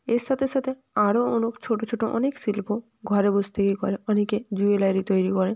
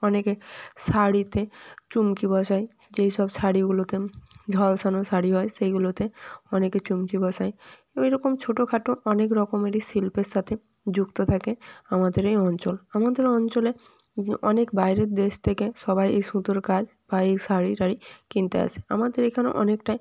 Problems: background sounds at intervals